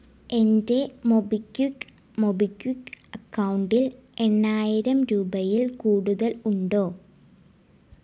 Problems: low volume